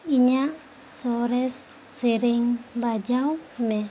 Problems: constant background noise